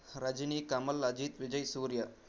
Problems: constant background noise, low volume